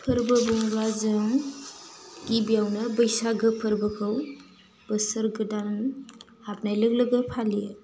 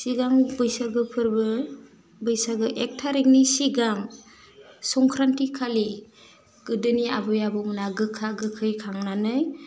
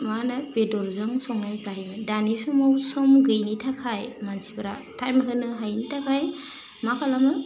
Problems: constant background noise